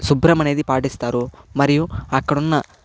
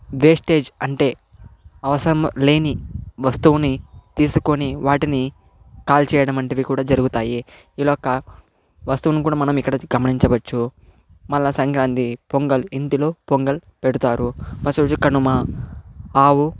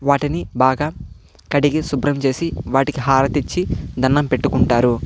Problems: constant background noise